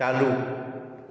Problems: echo